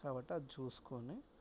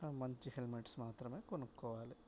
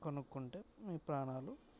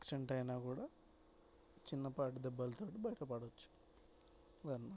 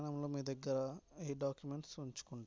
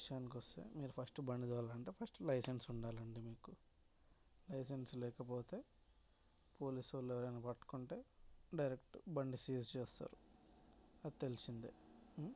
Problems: background sounds at intervals, low volume